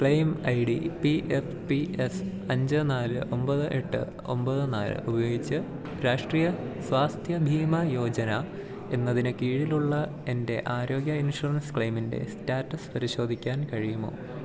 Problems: none marked